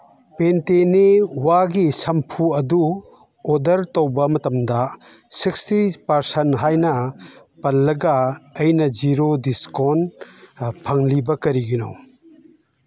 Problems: background conversations at intervals